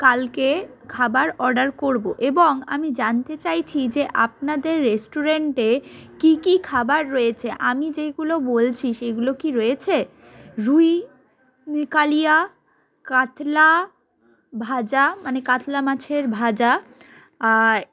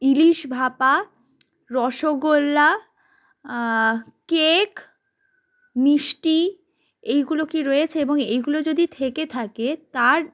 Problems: background sounds at intervals, continuous background conversations